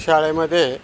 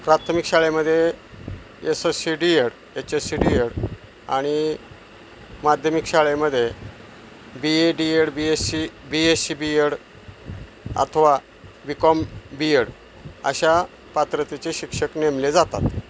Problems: none marked